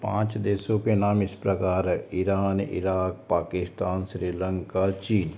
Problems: constant background noise